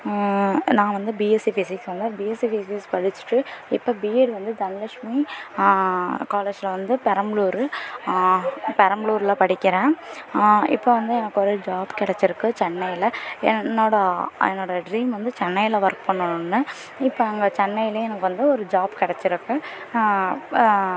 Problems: constant background noise, continuous background conversations